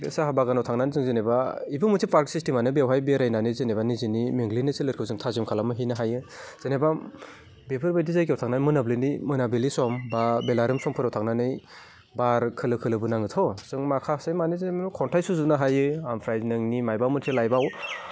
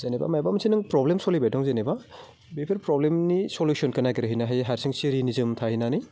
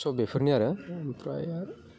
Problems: none marked